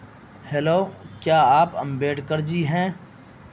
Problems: constant background noise